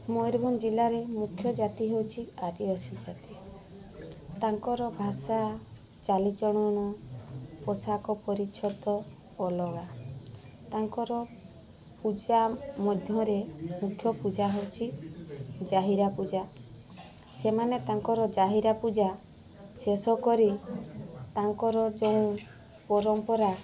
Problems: constant background noise